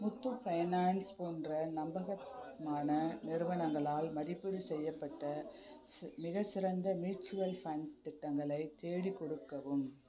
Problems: background conversations at intervals